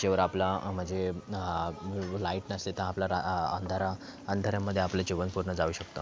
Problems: background sounds at intervals, background conversations at intervals